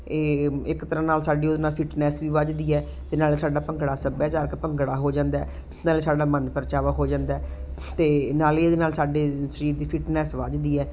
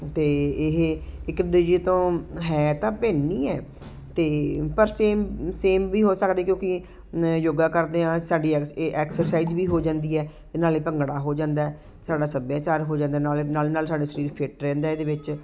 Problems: none marked